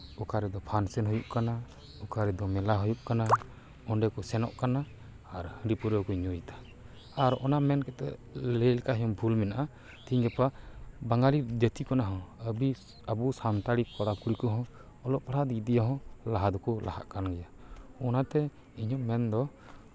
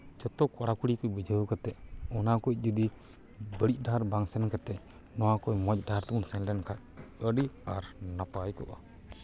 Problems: none marked